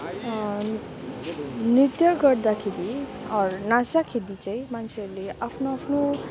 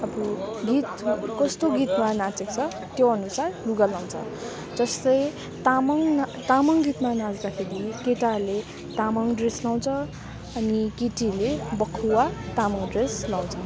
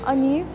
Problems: constant background noise